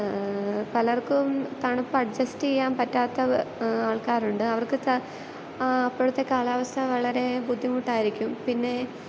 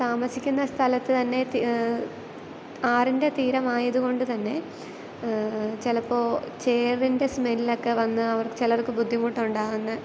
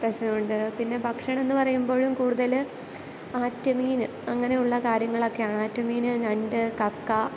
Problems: constant background noise